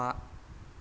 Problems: background sounds at intervals